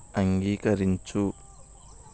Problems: constant background noise